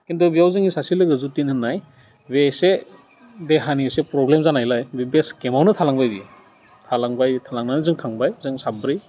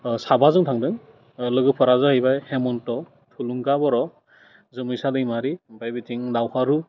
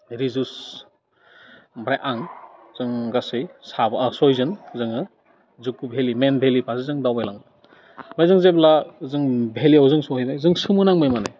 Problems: constant background noise